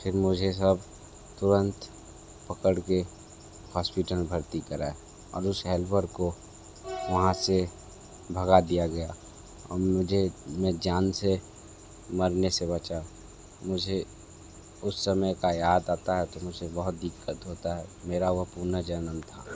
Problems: none marked